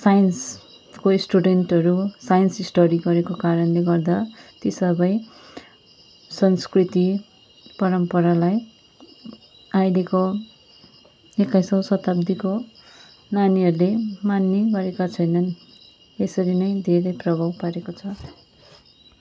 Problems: constant background noise